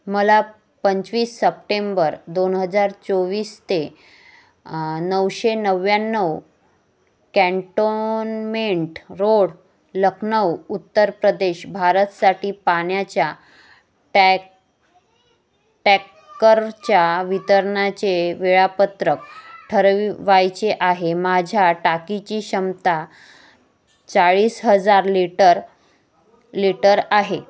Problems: background sounds at intervals